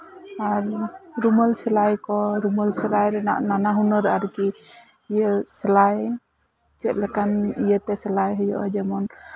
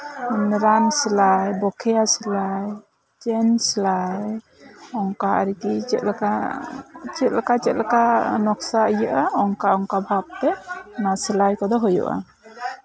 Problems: background sounds at intervals, background conversations at intervals